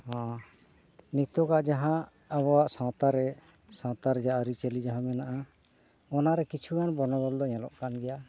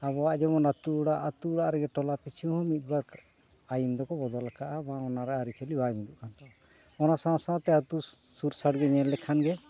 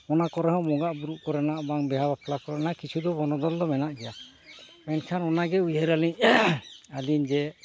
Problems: none marked